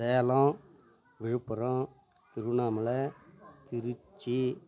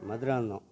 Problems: none marked